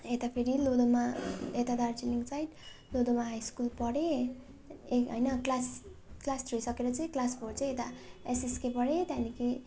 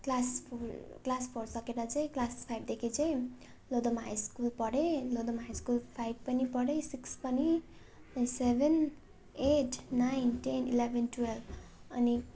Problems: constant background noise, continuous background conversations